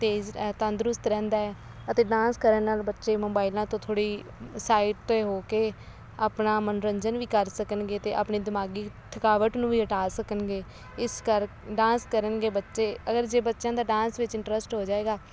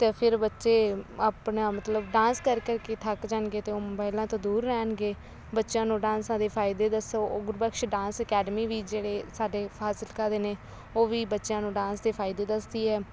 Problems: constant background noise